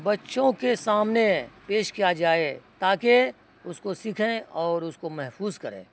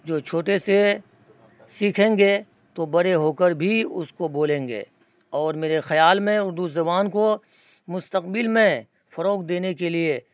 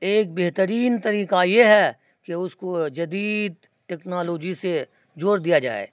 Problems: constant background noise